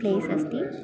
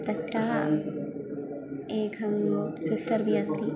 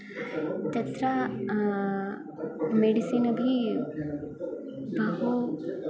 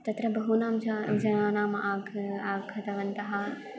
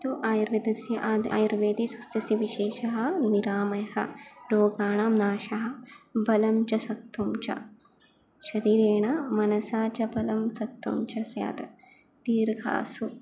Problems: none marked